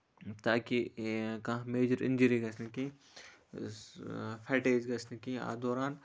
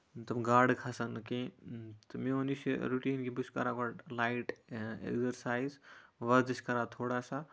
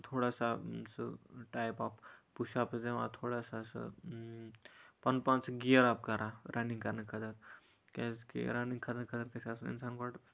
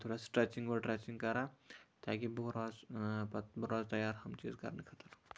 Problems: none marked